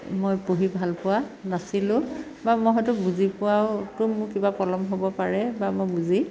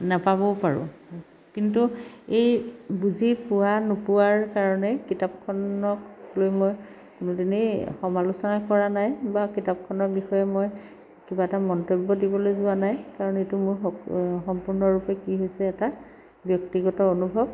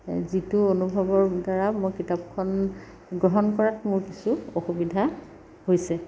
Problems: none marked